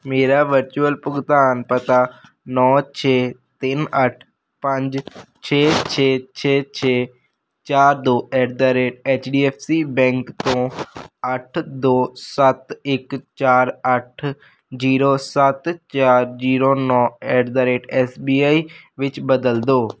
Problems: constant background noise